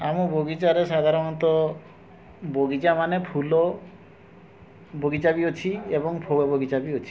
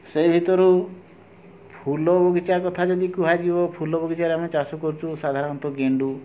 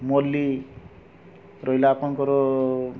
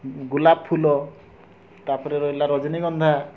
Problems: none marked